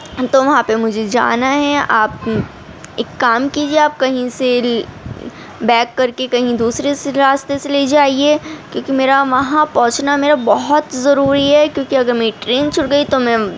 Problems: constant background noise